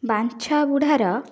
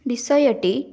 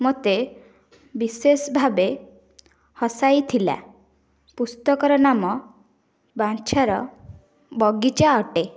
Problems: background sounds at intervals, background conversations at intervals